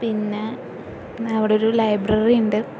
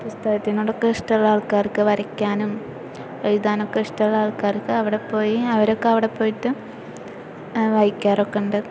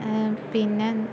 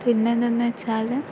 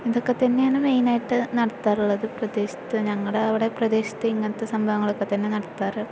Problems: constant background noise